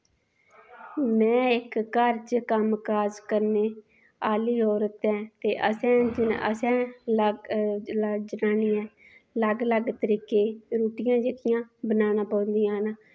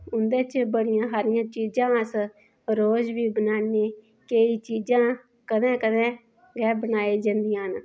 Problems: none marked